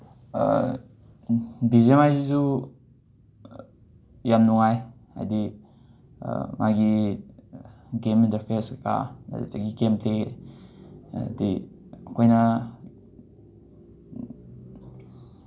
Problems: background sounds at intervals